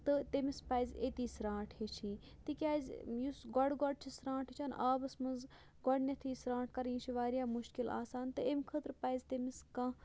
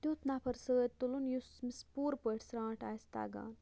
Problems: none marked